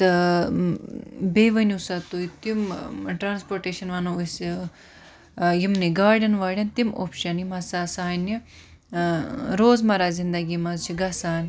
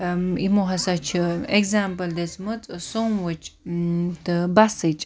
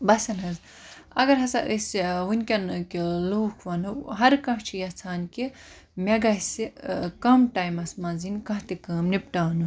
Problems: none marked